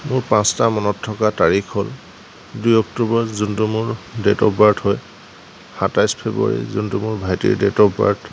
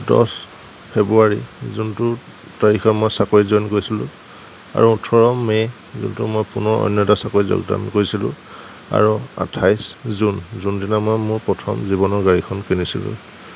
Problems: none marked